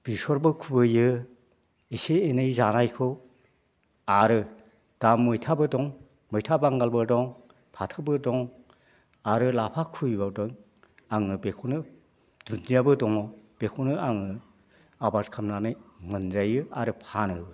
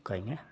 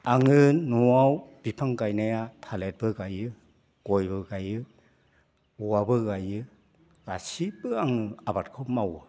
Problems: constant background noise